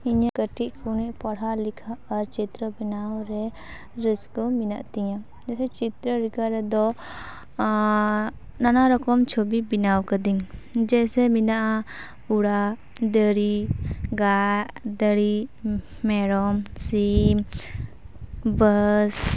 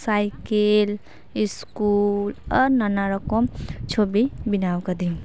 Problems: constant background noise, background conversations at intervals